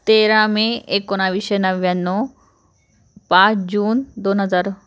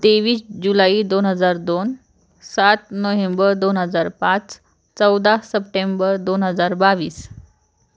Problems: constant background noise